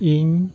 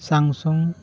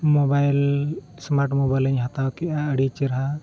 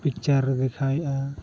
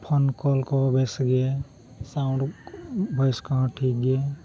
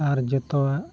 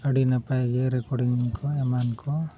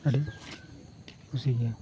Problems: low volume